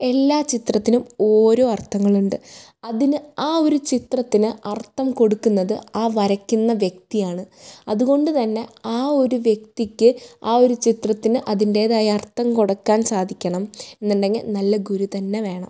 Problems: none marked